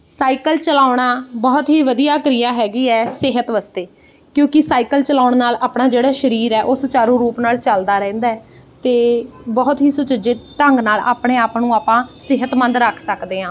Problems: background sounds at intervals